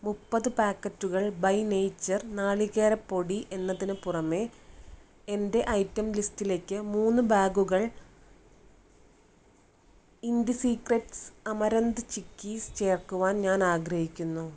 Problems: none marked